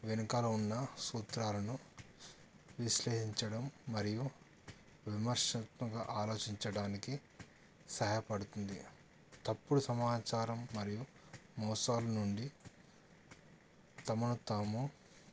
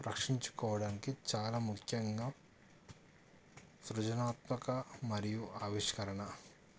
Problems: none marked